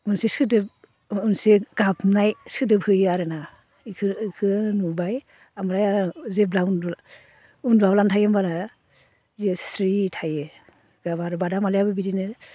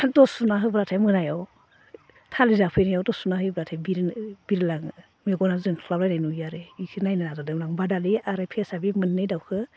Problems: constant background noise